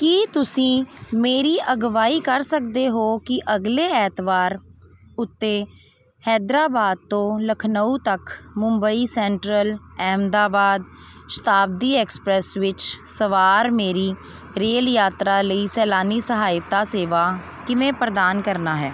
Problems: none marked